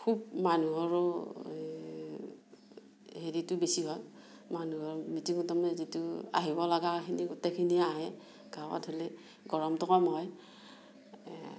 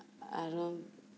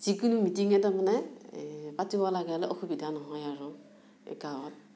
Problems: background sounds at intervals, low volume